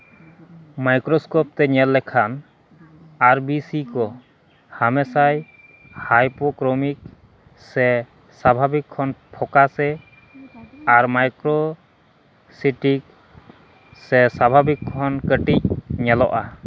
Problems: constant background noise